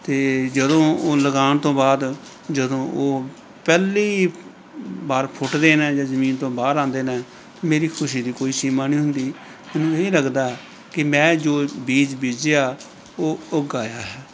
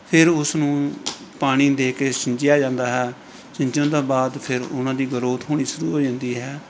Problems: background conversations at intervals